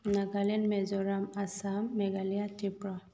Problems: none marked